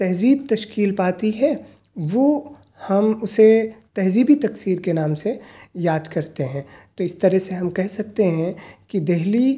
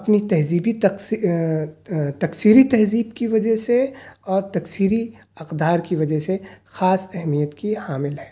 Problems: none marked